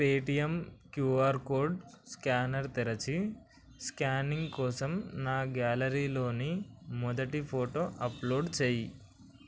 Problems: constant background noise